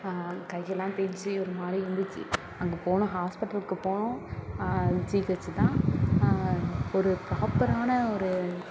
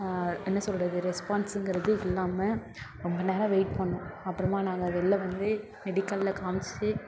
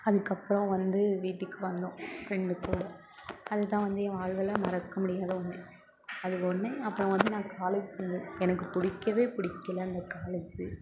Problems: constant background noise